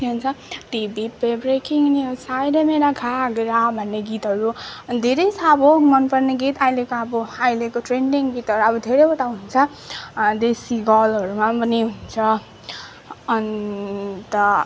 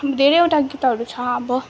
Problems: constant background noise, continuous background conversations